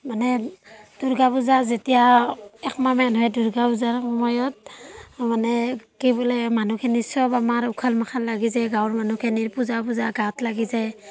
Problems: background sounds at intervals